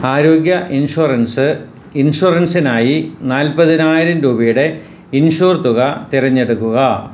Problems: constant background noise